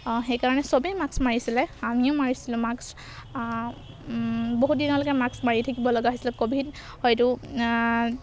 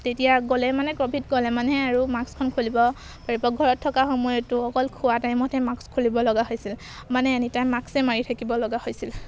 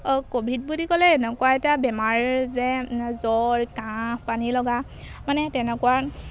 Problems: background sounds at intervals